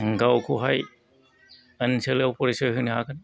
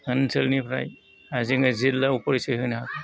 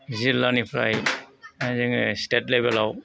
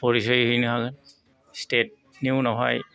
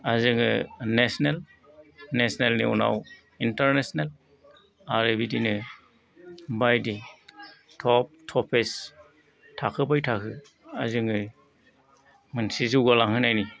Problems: background sounds at intervals